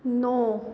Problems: constant background noise, echo